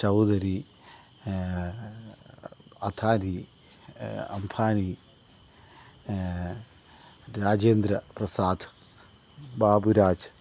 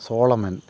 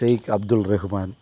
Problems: none marked